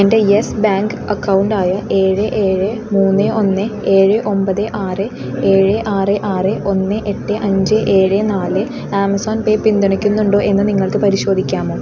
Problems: constant background noise